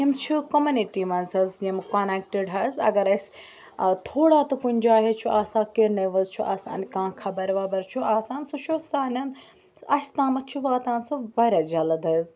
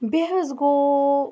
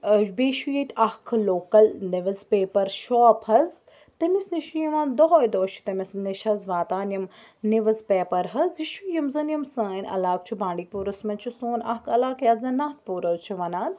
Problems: background sounds at intervals, background conversations at intervals